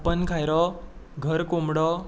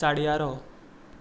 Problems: background sounds at intervals